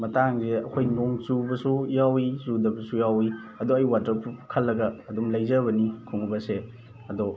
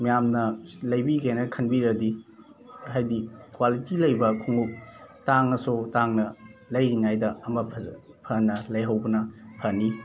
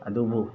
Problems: background sounds at intervals, background conversations at intervals